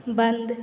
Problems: none marked